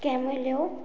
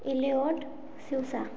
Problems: none marked